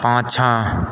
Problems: background sounds at intervals